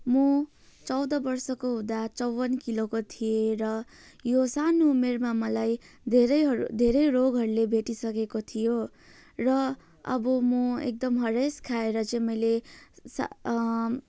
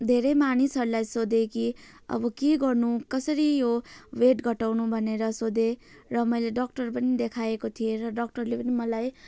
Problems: constant background noise